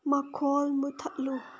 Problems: background sounds at intervals